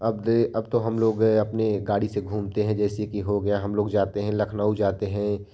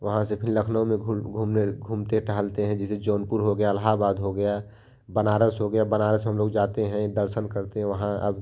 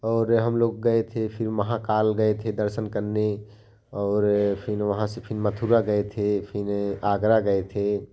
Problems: constant background noise